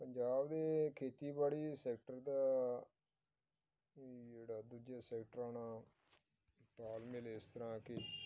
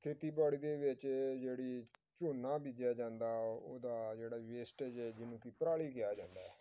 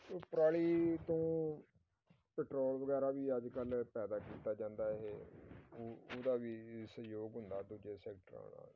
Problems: background sounds at intervals